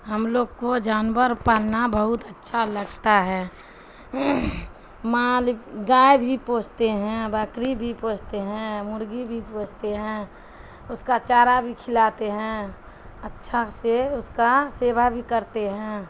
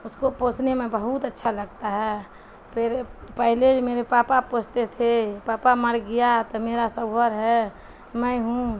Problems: constant background noise